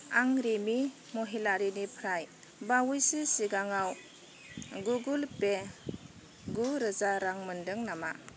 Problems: none marked